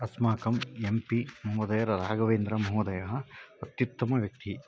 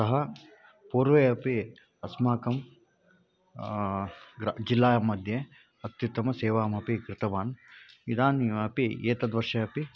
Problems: background sounds at intervals